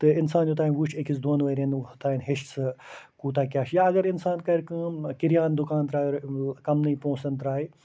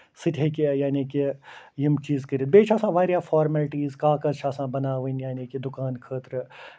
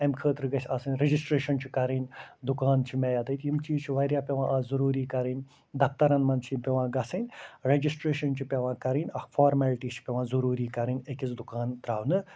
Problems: constant background noise